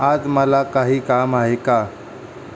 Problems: constant background noise